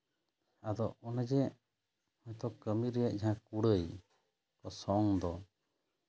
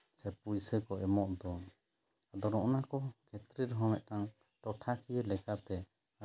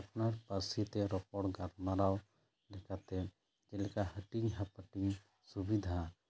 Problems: low volume